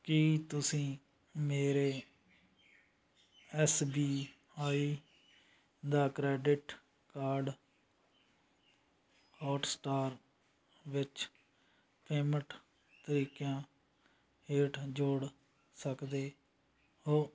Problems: background sounds at intervals